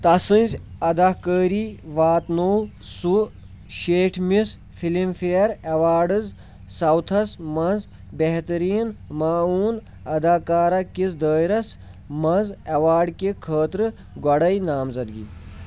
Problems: none marked